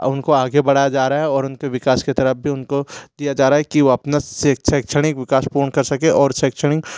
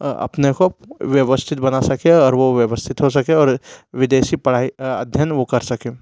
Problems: background sounds at intervals